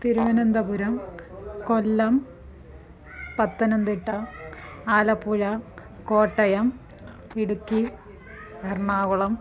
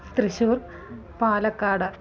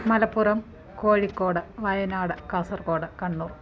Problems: continuous background conversations